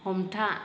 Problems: none marked